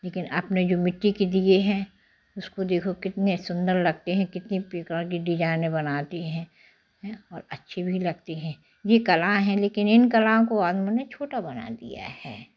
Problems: none marked